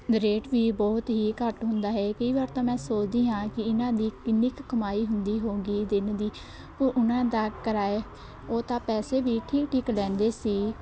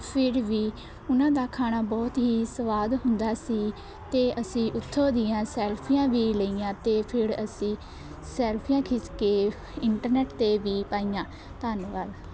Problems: constant background noise, background conversations at intervals